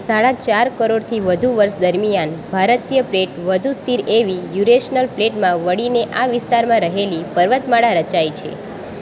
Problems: constant background noise